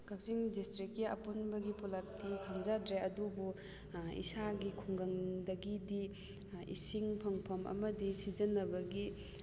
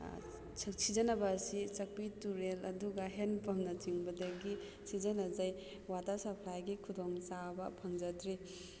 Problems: background sounds at intervals